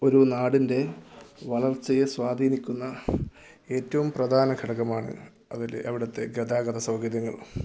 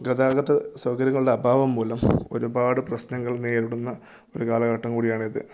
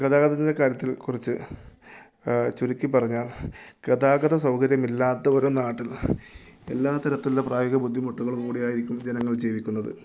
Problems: low volume